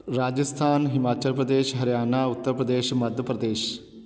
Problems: none marked